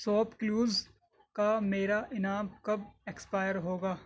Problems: none marked